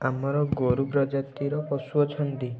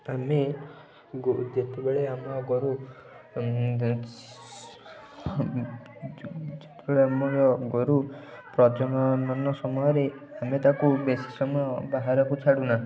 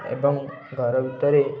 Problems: continuous background conversations